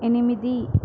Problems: constant background noise